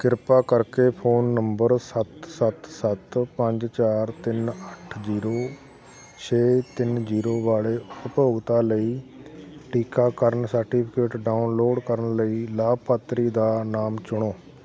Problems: constant background noise, continuous background conversations